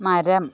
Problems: background sounds at intervals